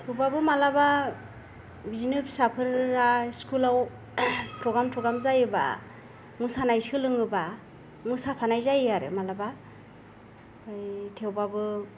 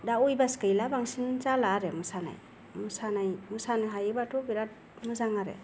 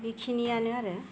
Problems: none marked